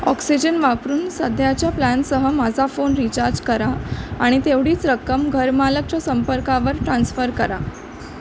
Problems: constant background noise